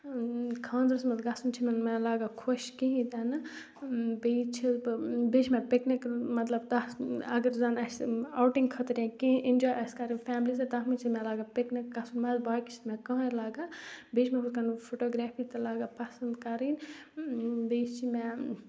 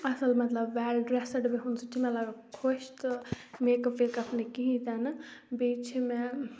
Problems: background sounds at intervals